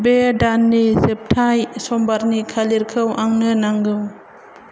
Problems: constant background noise